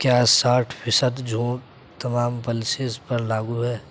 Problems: background sounds at intervals